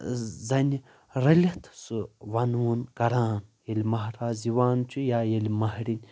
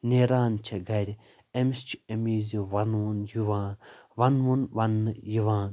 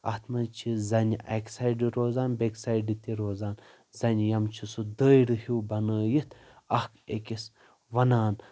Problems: constant background noise